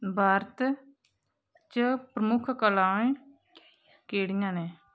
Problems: background sounds at intervals, background conversations at intervals